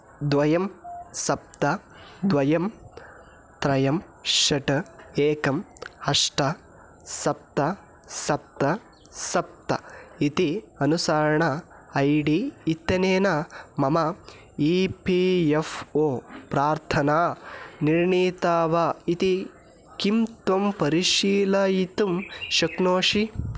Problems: background sounds at intervals